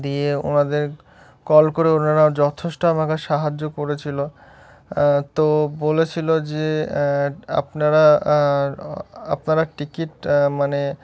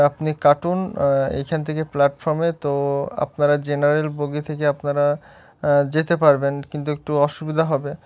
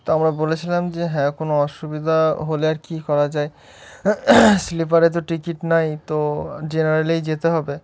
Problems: none marked